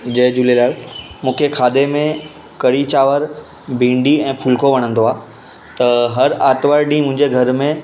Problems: constant background noise